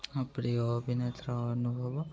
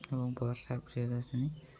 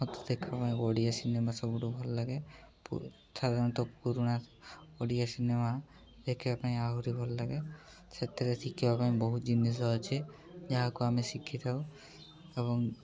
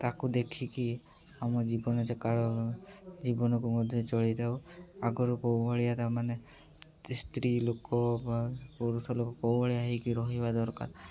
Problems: none marked